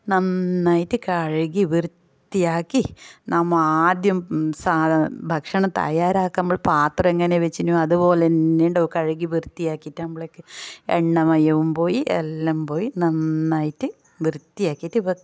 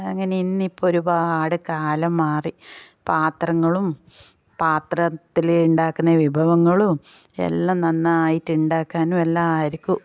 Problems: none marked